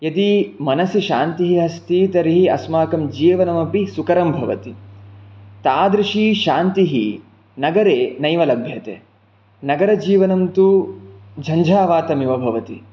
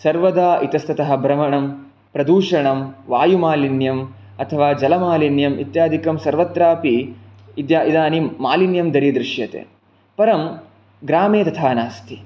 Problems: none marked